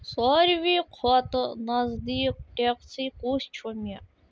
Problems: background sounds at intervals